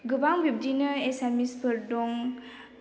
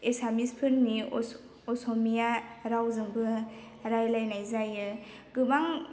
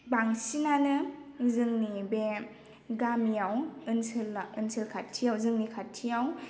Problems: none marked